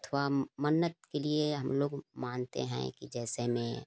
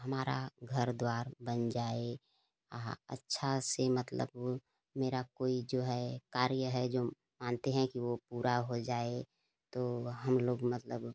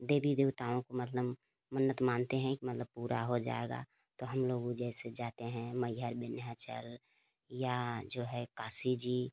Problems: constant background noise